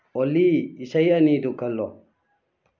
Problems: low volume